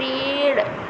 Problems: constant background noise